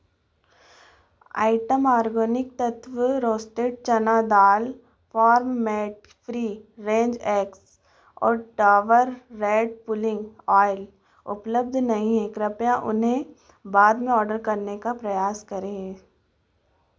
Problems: none marked